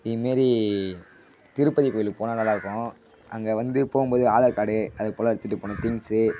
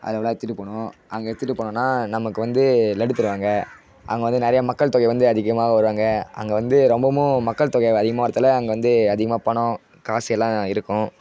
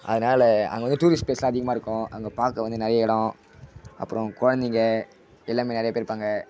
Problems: constant background noise